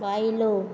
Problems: constant background noise, low volume